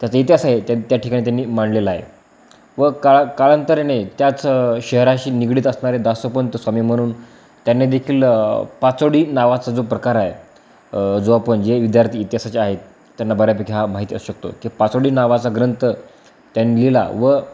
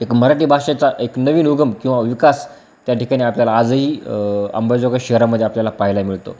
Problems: background sounds at intervals